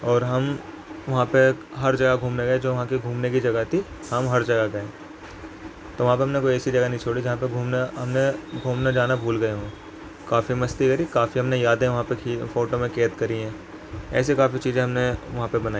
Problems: constant background noise